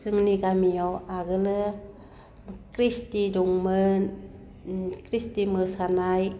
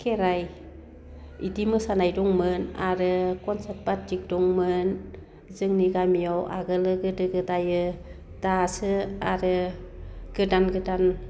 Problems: constant background noise